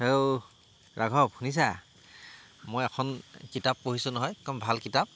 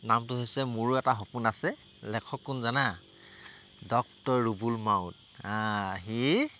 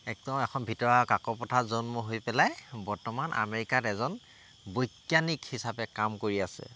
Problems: constant background noise